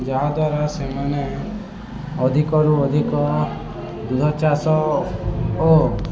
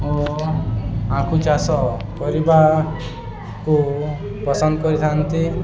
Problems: constant background noise, continuous background conversations